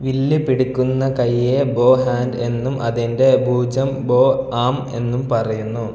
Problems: none marked